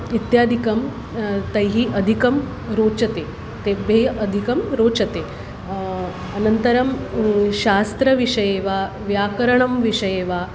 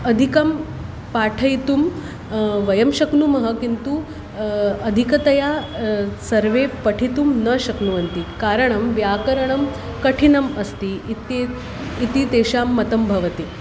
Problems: constant background noise